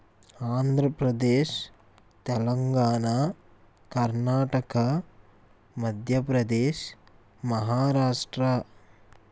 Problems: constant background noise